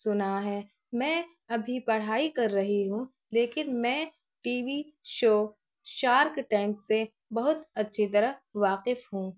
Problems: none marked